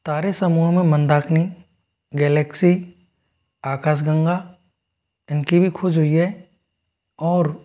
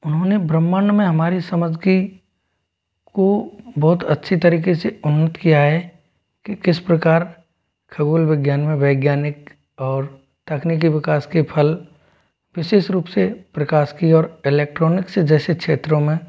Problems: background sounds at intervals